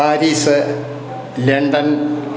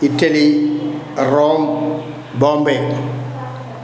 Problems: background sounds at intervals